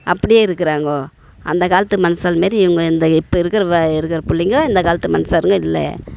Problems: none marked